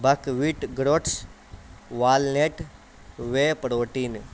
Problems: constant background noise